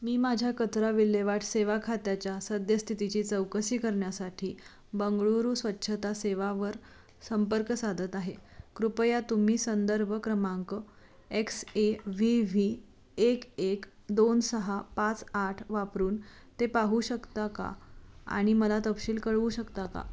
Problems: background sounds at intervals